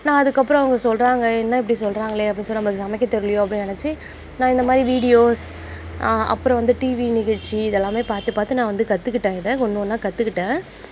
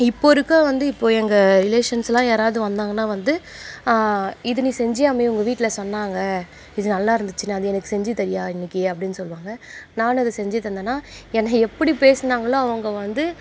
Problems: constant background noise